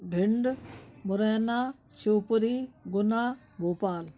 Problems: none marked